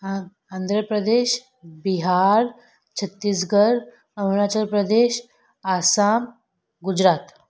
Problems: none marked